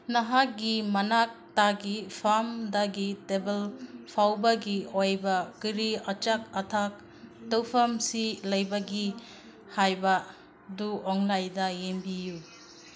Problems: background sounds at intervals